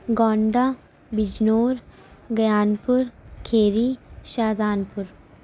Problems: constant background noise, low volume